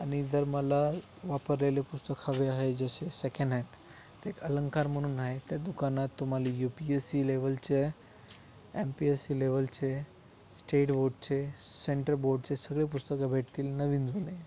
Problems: background sounds at intervals